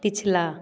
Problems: background sounds at intervals, continuous background conversations